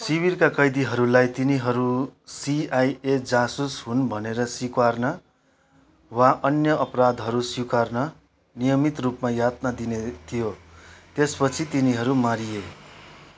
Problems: background conversations at intervals